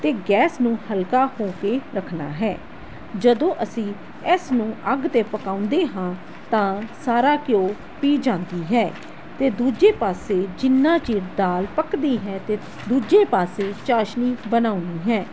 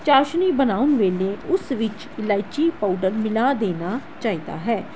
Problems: constant background noise